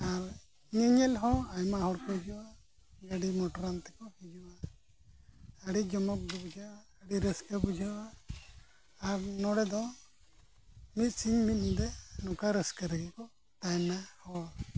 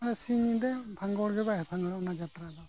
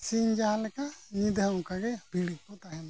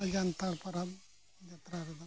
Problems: constant background noise, low volume